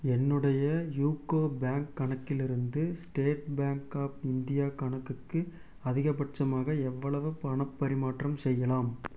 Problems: none marked